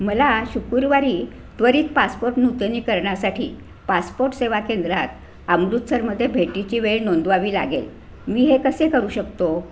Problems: none marked